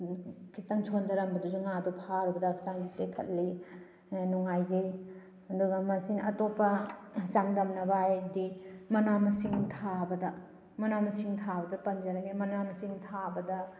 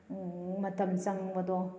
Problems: background sounds at intervals